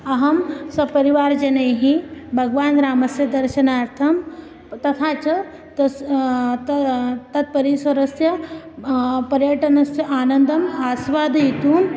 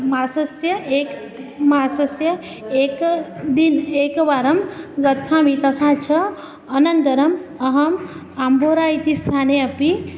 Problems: constant background noise